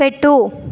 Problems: constant background noise